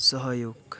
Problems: none marked